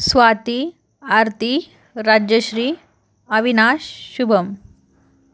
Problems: constant background noise